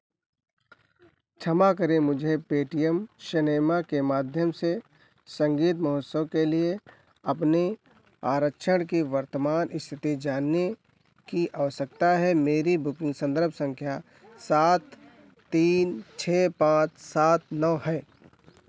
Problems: none marked